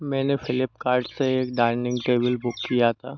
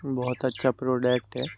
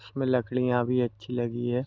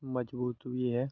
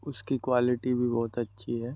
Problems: constant background noise